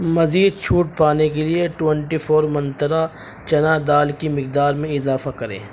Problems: background sounds at intervals, background conversations at intervals